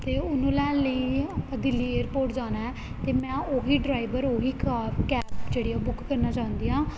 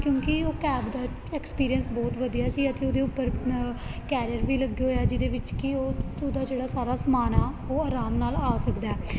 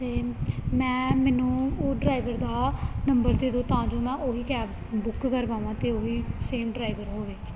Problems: constant background noise